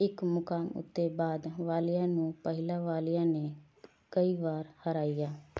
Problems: none marked